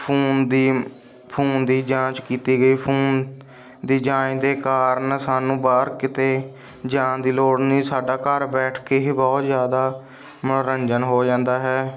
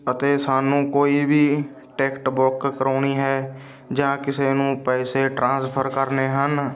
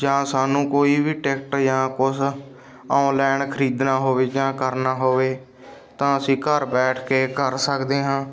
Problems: none marked